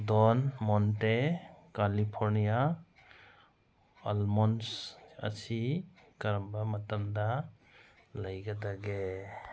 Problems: none marked